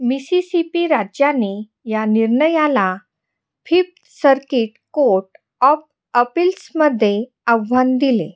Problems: none marked